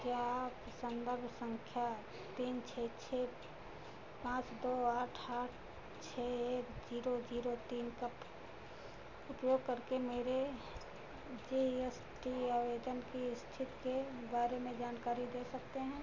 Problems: constant background noise, low volume